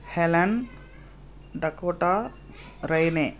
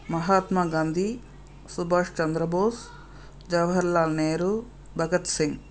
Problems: constant background noise